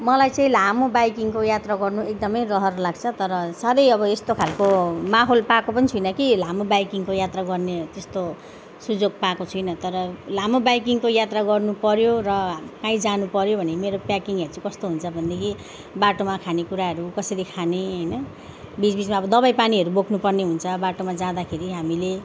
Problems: background sounds at intervals